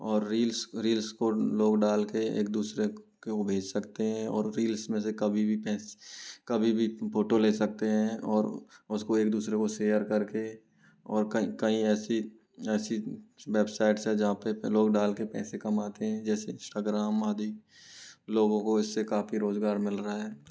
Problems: low volume